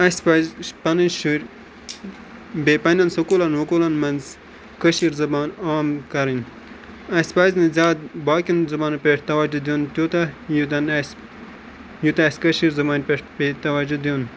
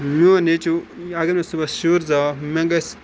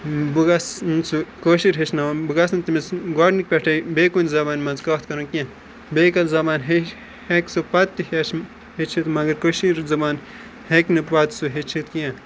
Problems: constant background noise